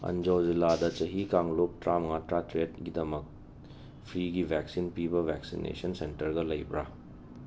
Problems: background sounds at intervals, low volume